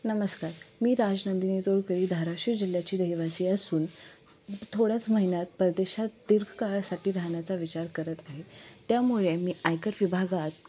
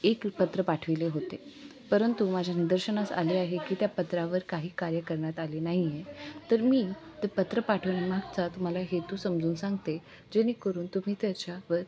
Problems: none marked